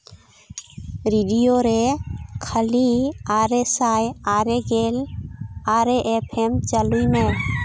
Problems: background sounds at intervals